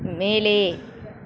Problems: continuous background conversations